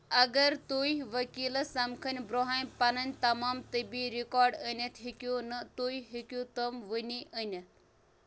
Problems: none marked